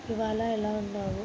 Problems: constant background noise